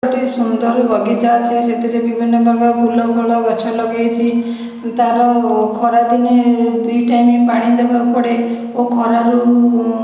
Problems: echo